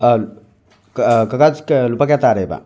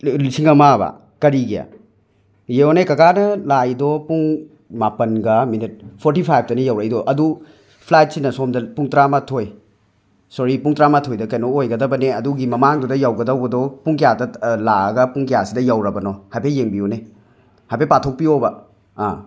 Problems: background sounds at intervals, background conversations at intervals